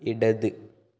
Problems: none marked